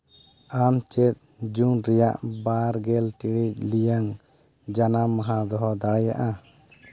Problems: background sounds at intervals